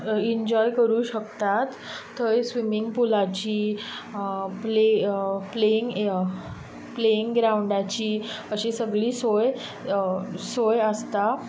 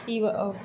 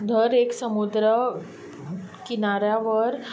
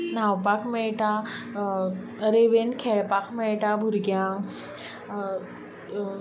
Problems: constant background noise